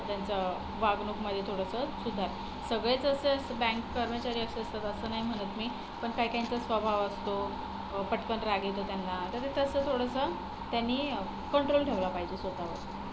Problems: none marked